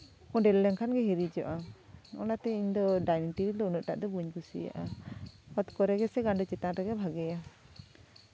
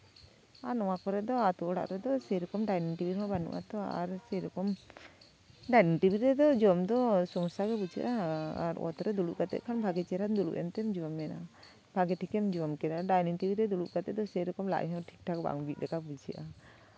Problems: none marked